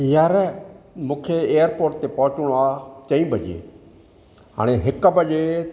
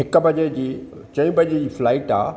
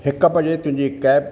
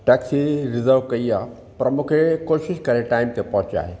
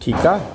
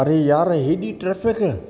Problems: none marked